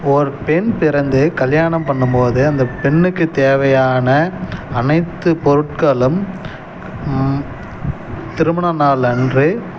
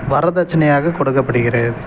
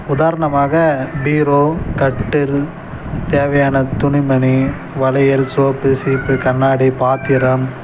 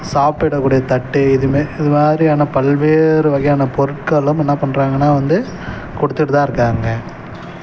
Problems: none marked